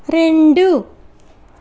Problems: constant background noise